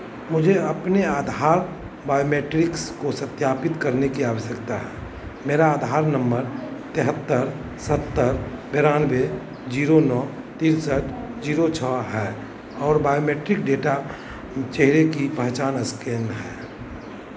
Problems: constant background noise